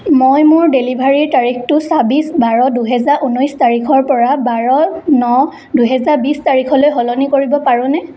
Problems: constant background noise, echo